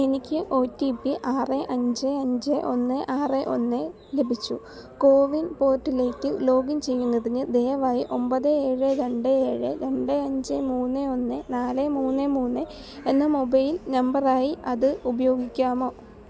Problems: background sounds at intervals